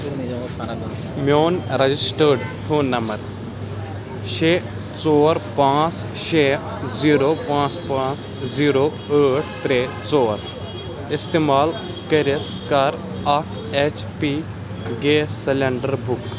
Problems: constant background noise, background conversations at intervals